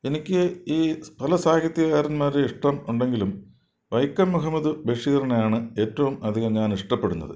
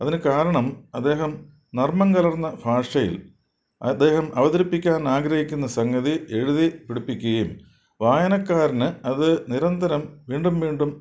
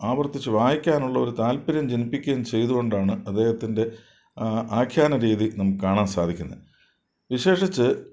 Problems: none marked